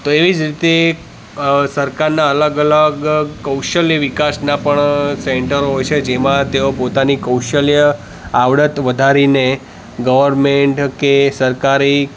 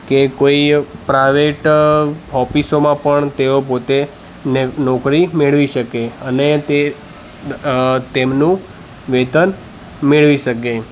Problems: constant background noise, background conversations at intervals